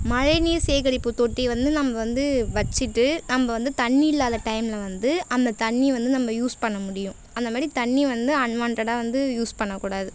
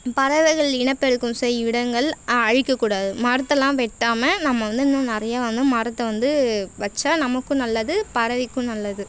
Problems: constant background noise